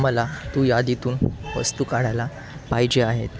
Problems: constant background noise